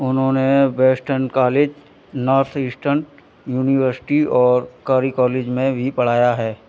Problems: background sounds at intervals